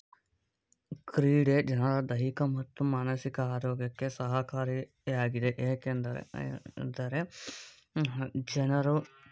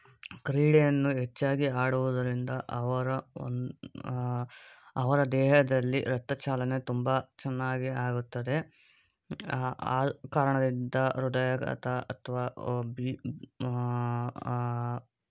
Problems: background sounds at intervals